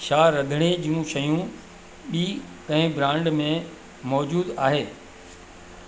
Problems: constant background noise, echo